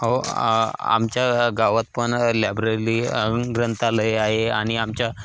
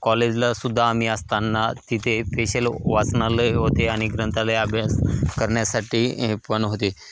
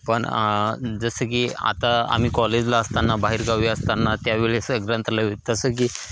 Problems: constant background noise, background conversations at intervals, echo